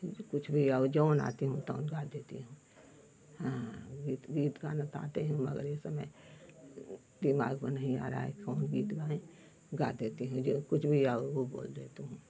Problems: none marked